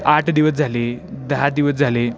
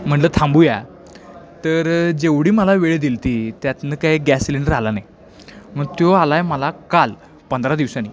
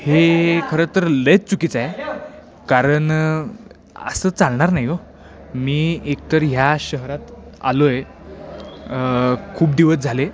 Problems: background sounds at intervals, background conversations at intervals